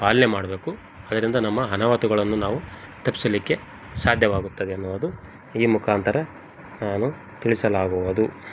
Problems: none marked